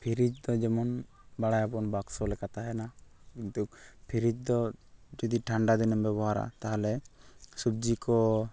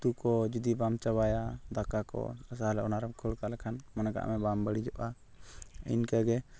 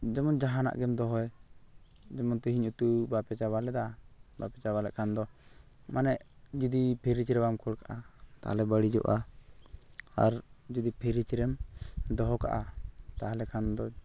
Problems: constant background noise